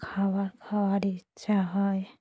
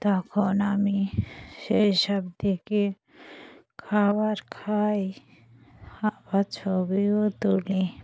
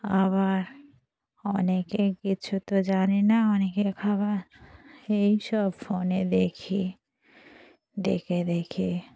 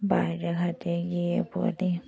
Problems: background conversations at intervals